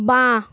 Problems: constant background noise